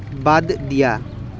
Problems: none marked